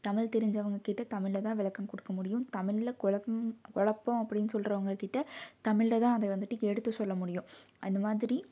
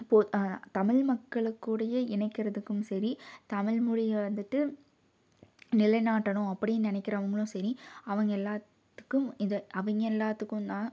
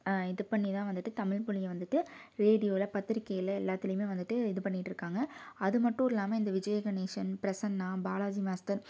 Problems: none marked